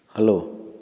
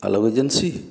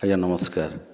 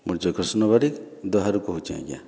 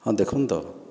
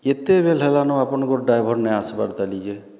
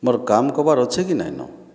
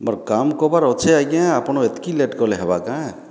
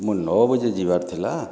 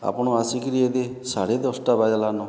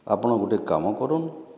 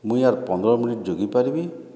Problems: background sounds at intervals